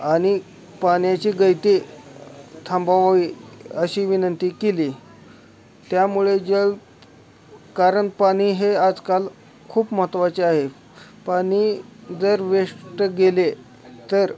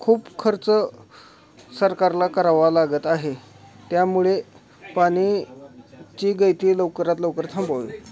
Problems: constant background noise, continuous background conversations